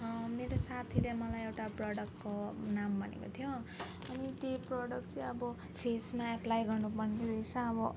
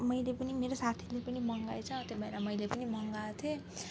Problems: background sounds at intervals